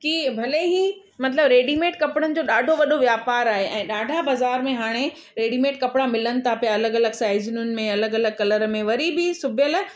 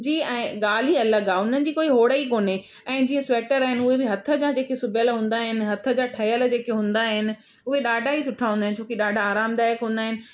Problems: none marked